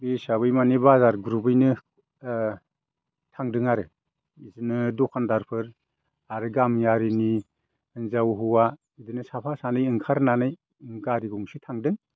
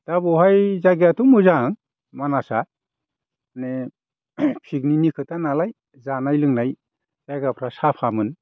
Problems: none marked